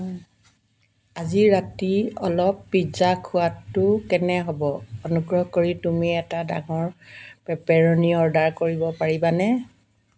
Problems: constant background noise